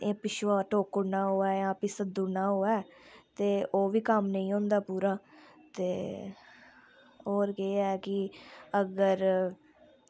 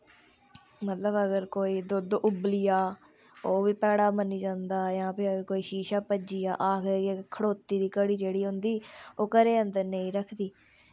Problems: none marked